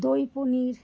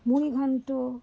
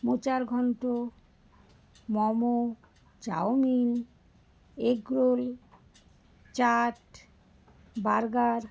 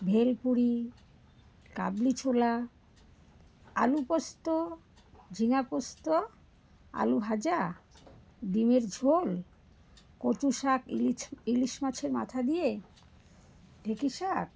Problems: background sounds at intervals